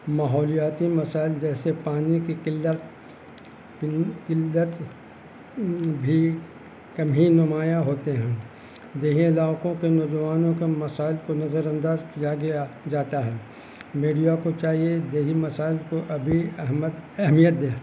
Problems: constant background noise